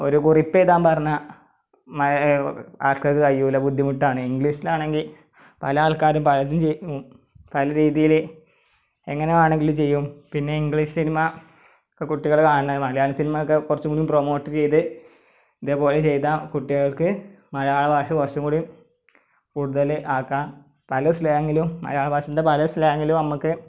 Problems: none marked